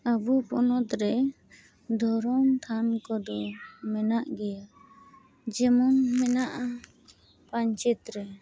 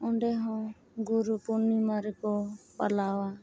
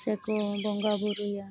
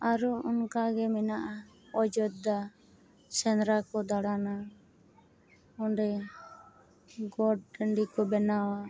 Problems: constant background noise